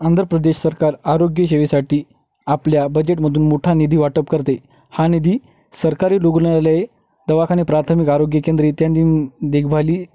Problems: background sounds at intervals